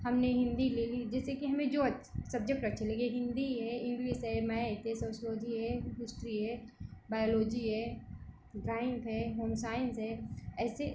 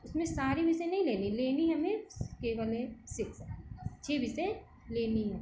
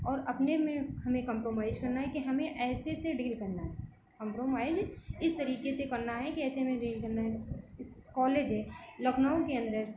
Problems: background sounds at intervals